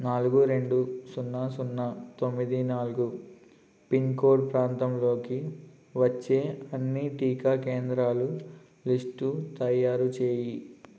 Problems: constant background noise